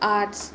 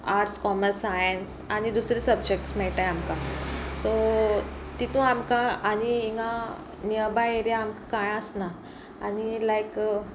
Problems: none marked